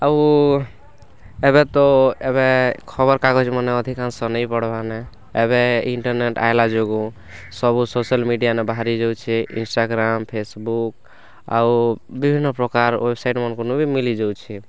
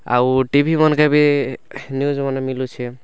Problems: background sounds at intervals, background conversations at intervals